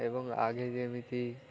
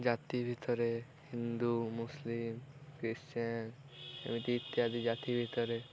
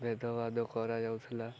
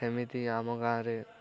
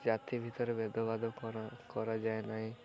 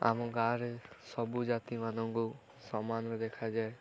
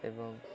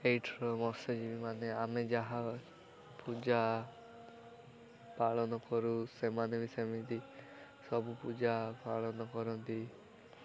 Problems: continuous background conversations